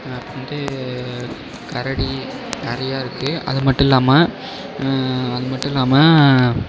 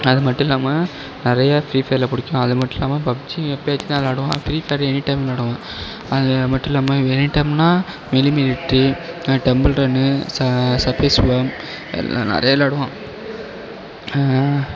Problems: background sounds at intervals